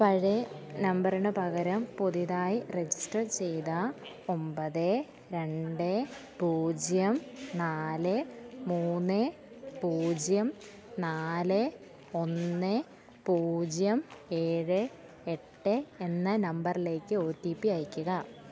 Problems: background sounds at intervals, low volume